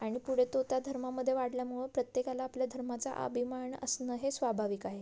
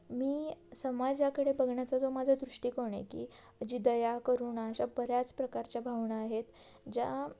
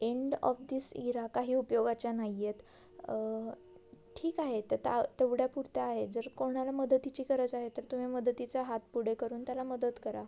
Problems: background sounds at intervals